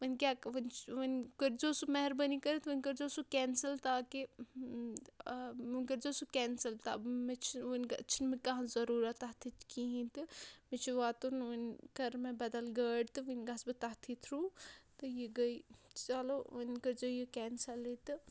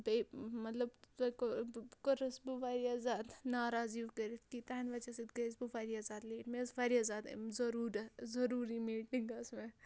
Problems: none marked